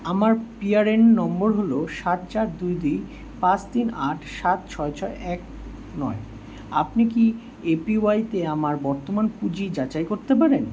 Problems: constant background noise